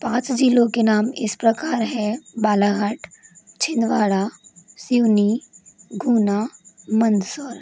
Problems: constant background noise